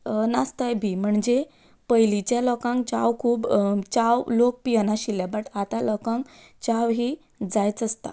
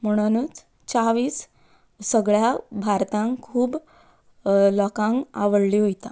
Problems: background sounds at intervals